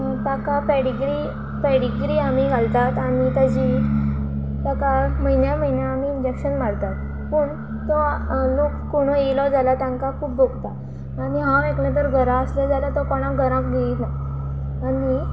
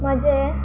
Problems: constant background noise